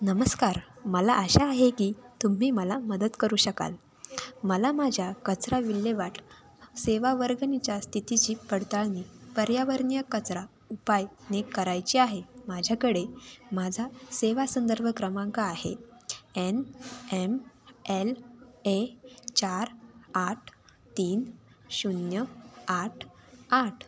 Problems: none marked